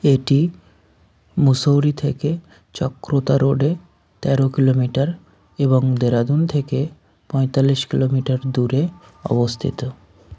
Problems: constant background noise, background conversations at intervals